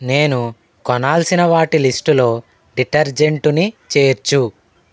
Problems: none marked